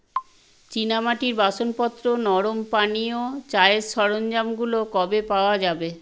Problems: constant background noise